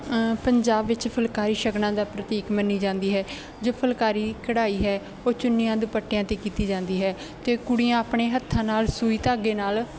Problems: constant background noise